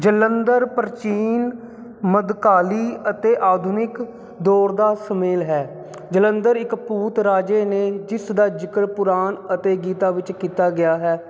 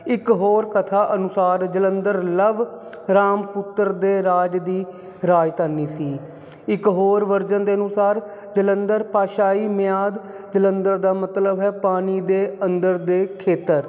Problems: constant background noise